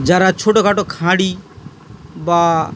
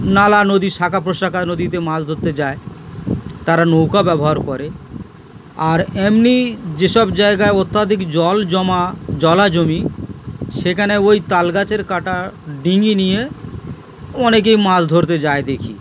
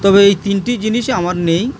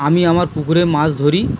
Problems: background sounds at intervals